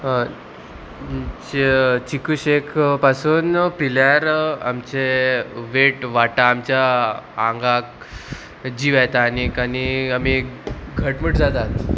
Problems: constant background noise